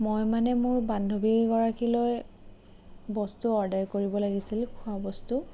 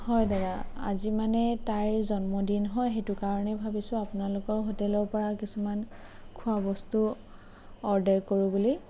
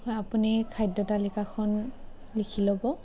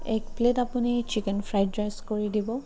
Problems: none marked